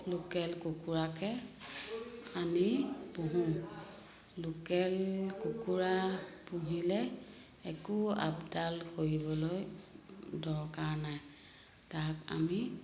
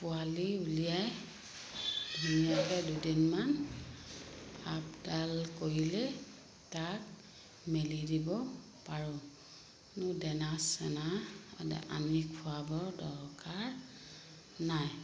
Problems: constant background noise